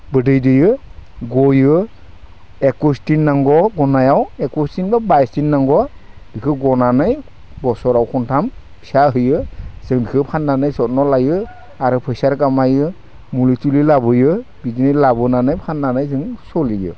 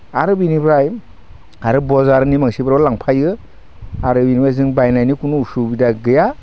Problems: constant background noise